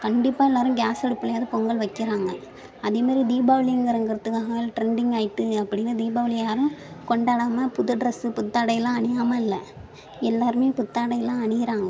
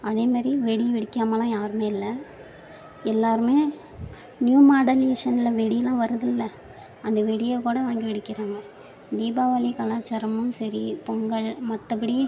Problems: background sounds at intervals, background conversations at intervals